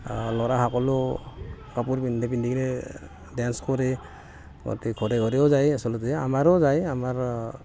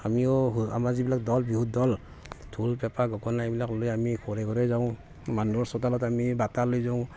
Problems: constant background noise, background conversations at intervals